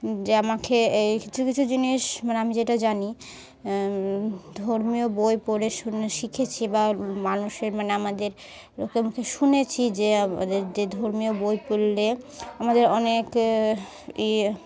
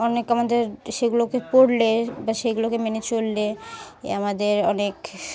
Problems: constant background noise, background conversations at intervals